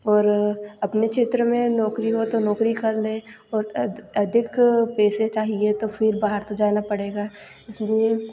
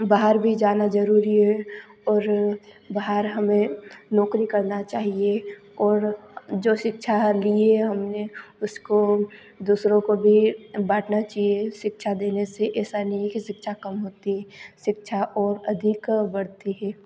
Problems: constant background noise